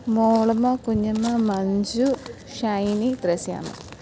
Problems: constant background noise